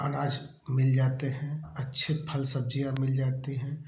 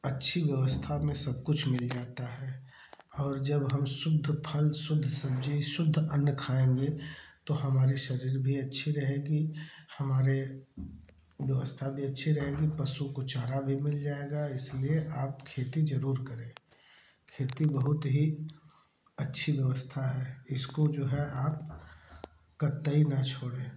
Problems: none marked